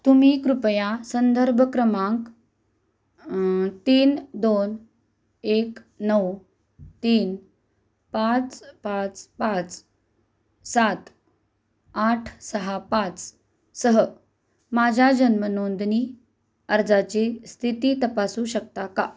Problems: constant background noise